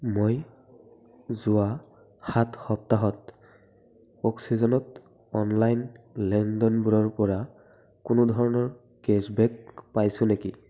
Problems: constant background noise